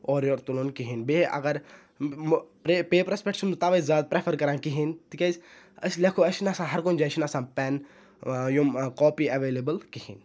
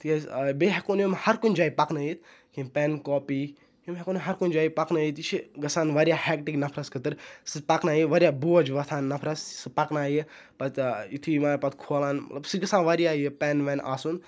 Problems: none marked